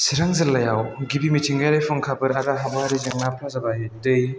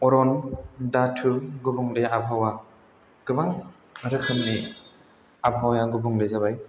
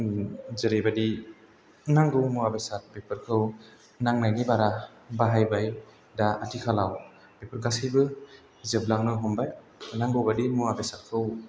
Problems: background sounds at intervals